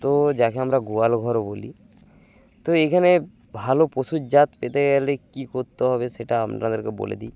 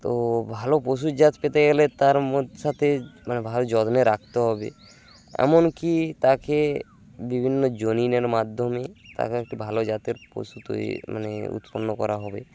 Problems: constant background noise